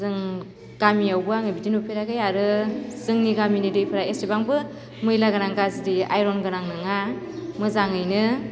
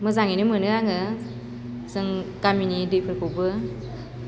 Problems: constant background noise